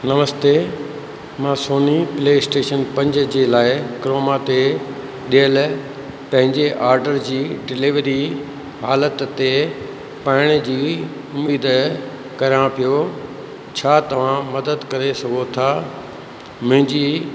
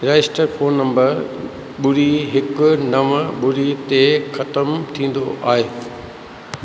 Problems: constant background noise